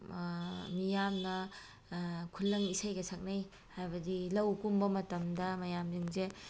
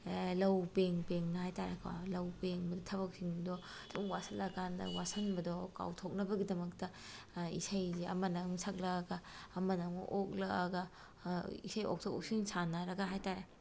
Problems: none marked